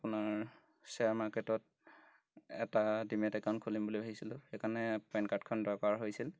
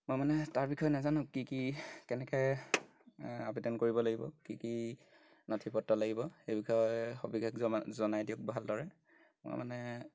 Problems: background sounds at intervals